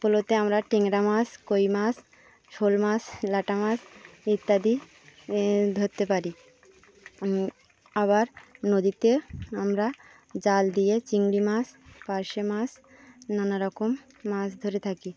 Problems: none marked